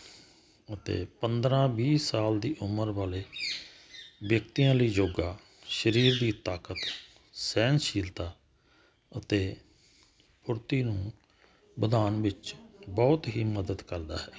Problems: none marked